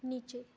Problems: none marked